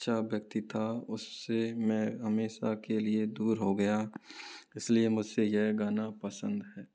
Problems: low volume